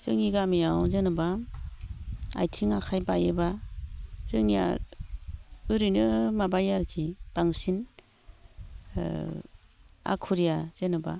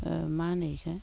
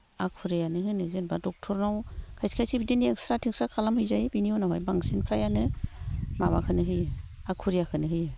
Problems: low volume